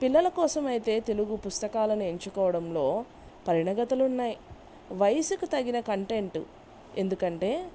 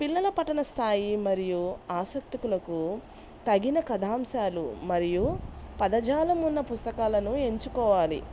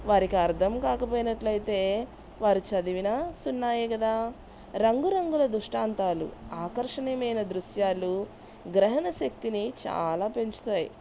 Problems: background sounds at intervals